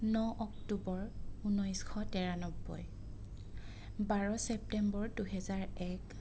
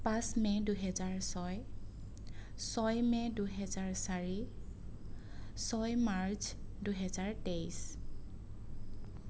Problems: none marked